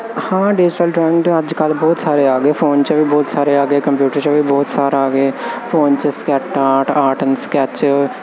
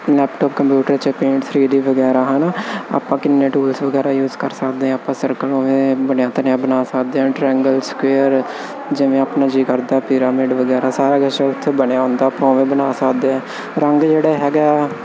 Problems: constant background noise